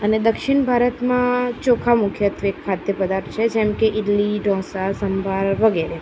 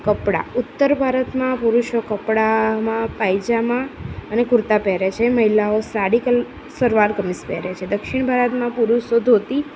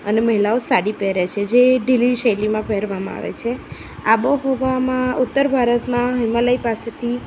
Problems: constant background noise